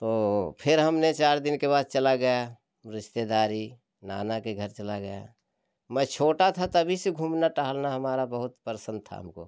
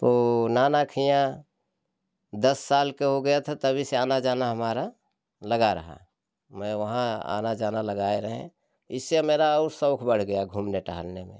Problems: none marked